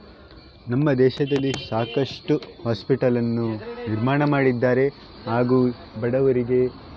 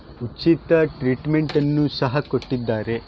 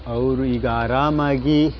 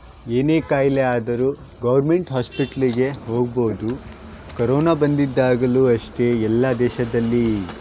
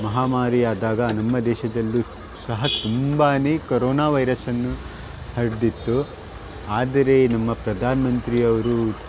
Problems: background sounds at intervals